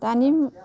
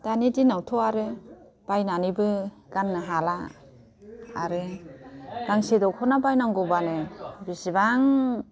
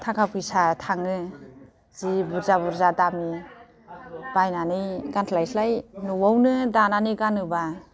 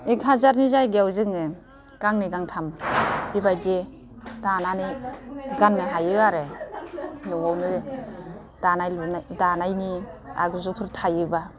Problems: none marked